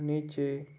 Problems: constant background noise